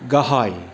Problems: constant background noise